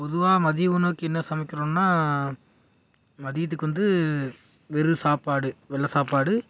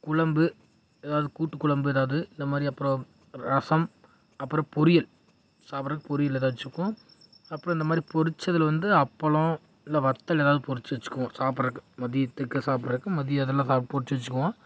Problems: none marked